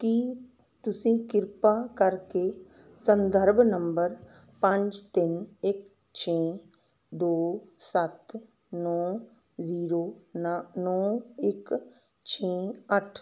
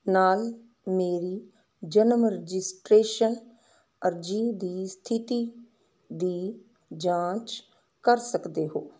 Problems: none marked